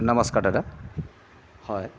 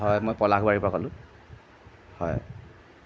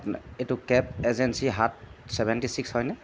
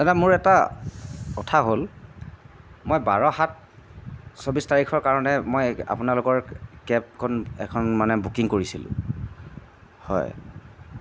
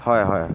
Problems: constant background noise